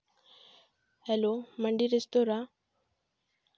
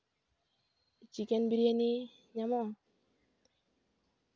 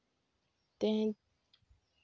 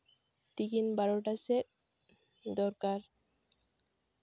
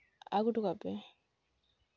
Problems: low volume